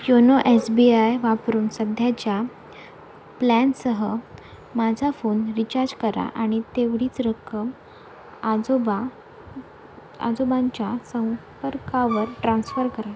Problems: none marked